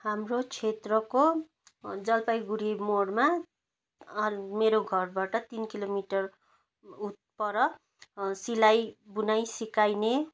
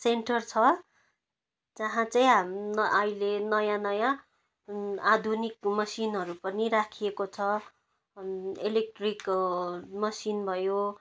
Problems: none marked